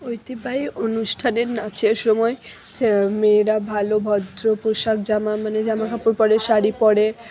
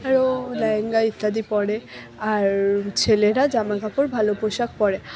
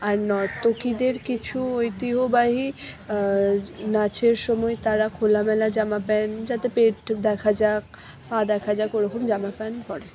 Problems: background conversations at intervals